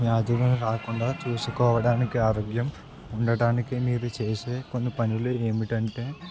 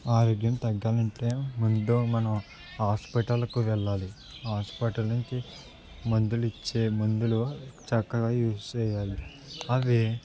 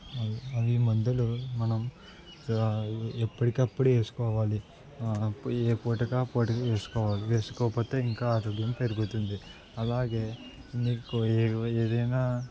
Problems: none marked